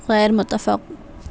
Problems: constant background noise